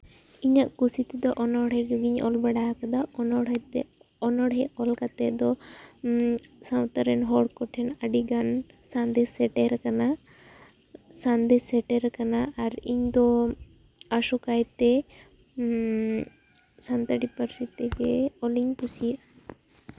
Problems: background sounds at intervals